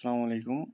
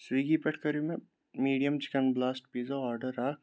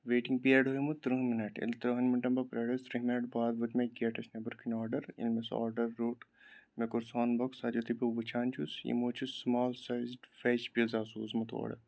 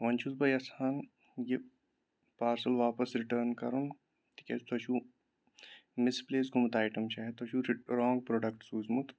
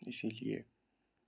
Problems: background sounds at intervals